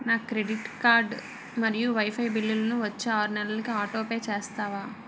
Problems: background sounds at intervals